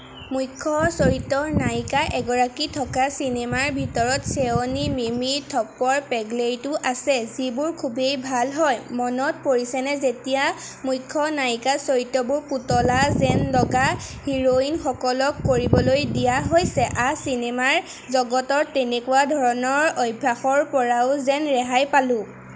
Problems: constant background noise